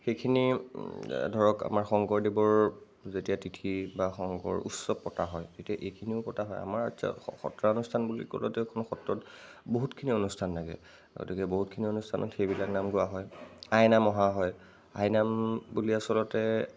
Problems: constant background noise